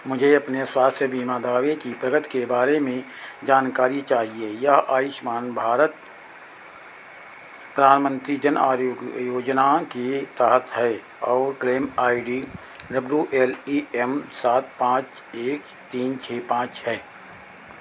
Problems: none marked